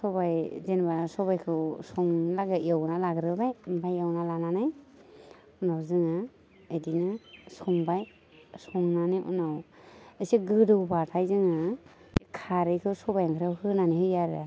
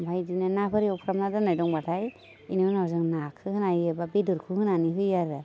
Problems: constant background noise